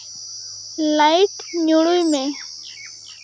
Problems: constant background noise